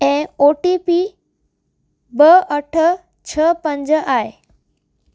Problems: constant background noise